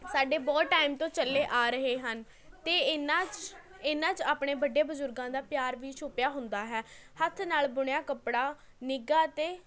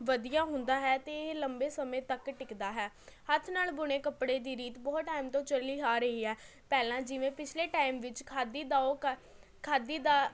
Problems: continuous background conversations